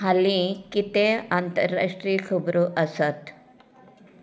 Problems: background sounds at intervals